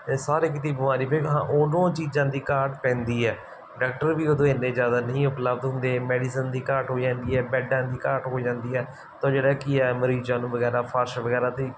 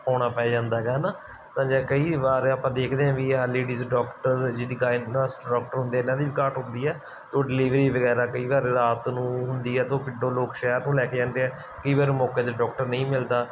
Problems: background sounds at intervals